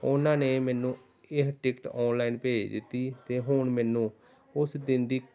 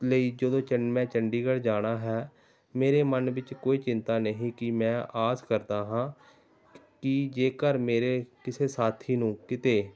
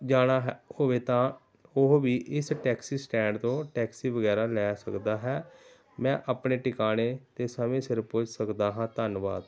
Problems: background sounds at intervals, background conversations at intervals